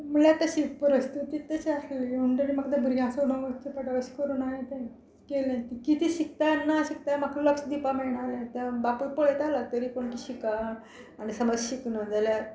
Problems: none marked